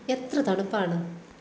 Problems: none marked